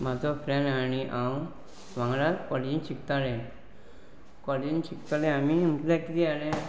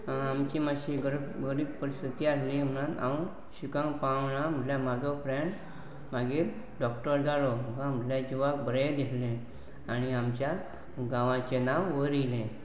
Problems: constant background noise